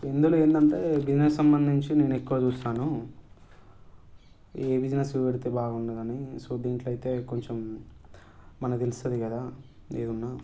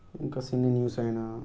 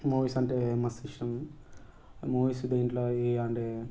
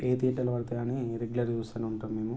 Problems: background sounds at intervals